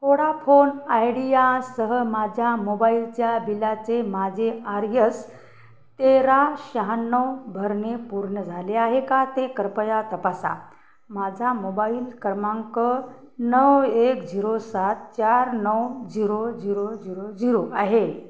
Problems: constant background noise, background conversations at intervals